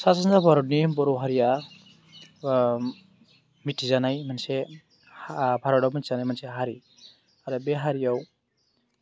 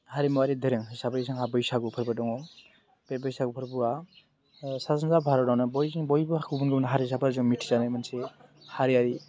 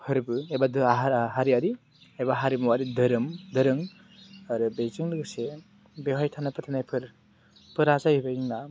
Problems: constant background noise